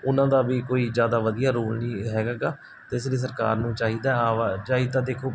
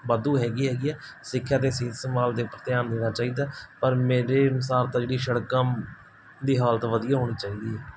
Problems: none marked